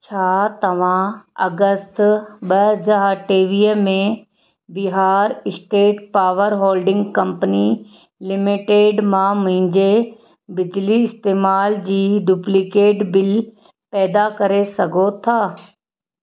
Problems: none marked